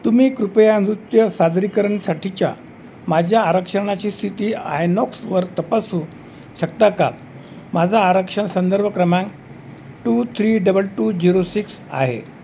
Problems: constant background noise